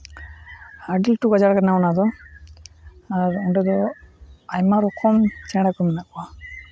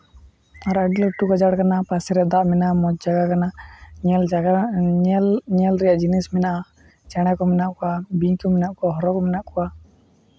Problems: constant background noise, low volume